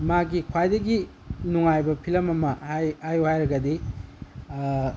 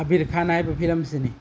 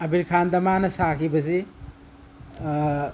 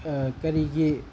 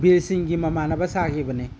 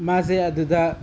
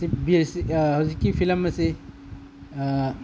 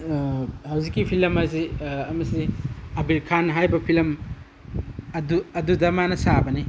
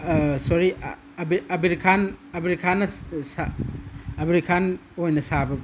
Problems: background sounds at intervals